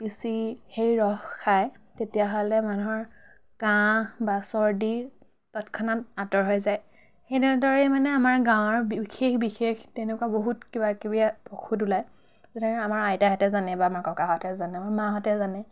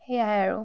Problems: none marked